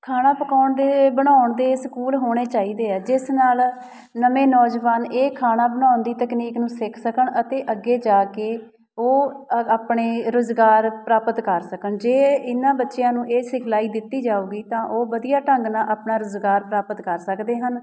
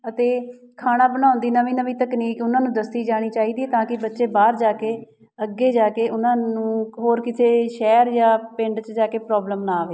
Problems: background sounds at intervals